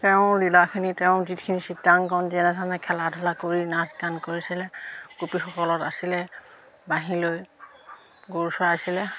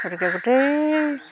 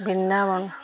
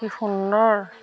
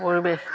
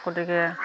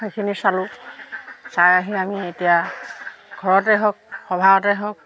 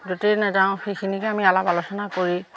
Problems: constant background noise